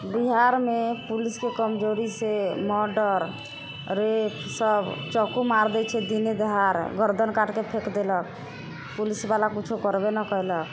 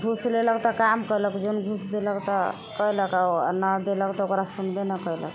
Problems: constant background noise